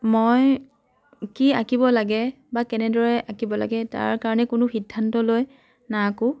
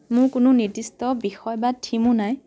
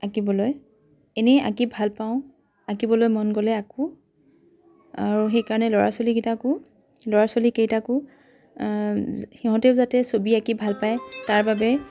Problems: constant background noise, background conversations at intervals